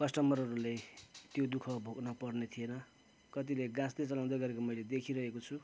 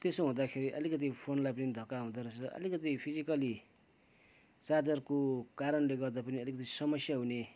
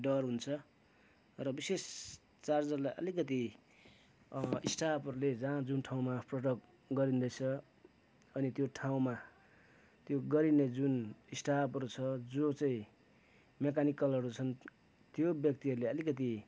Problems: background sounds at intervals